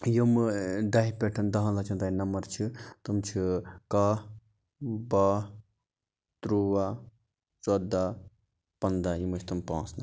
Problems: background sounds at intervals